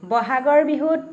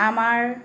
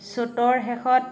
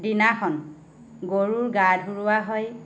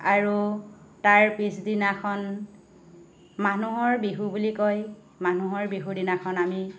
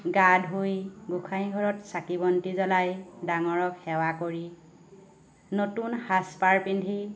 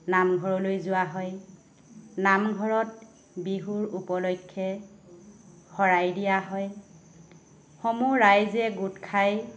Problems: none marked